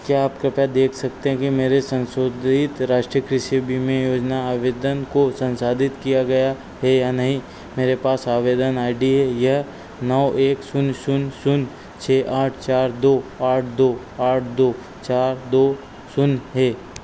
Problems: constant background noise